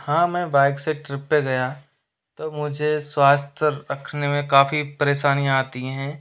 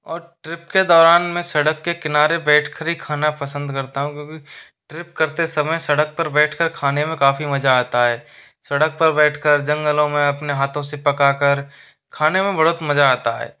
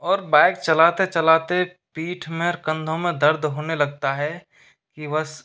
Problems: constant background noise